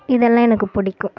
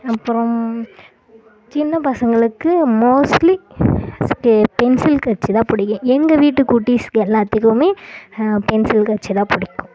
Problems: constant background noise